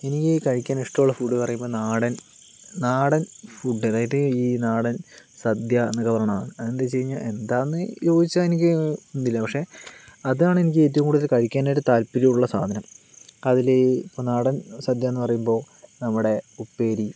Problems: background sounds at intervals